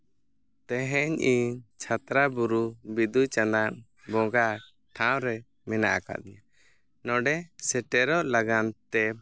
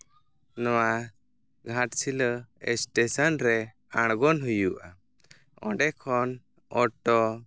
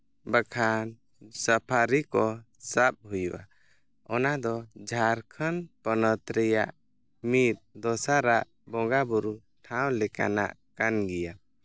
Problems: none marked